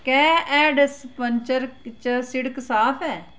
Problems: constant background noise